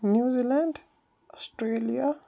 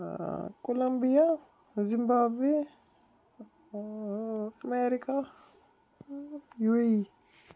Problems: none marked